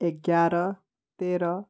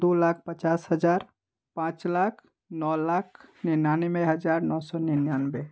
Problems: none marked